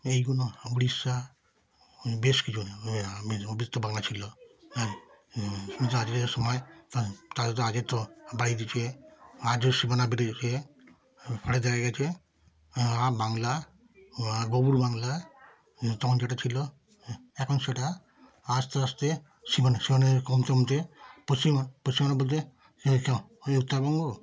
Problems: continuous background conversations